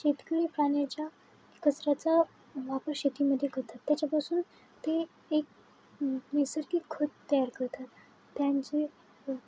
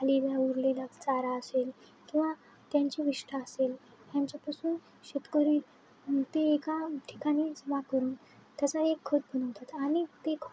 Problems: none marked